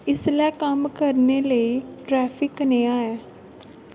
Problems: constant background noise